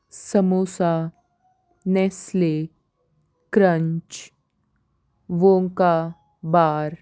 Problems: none marked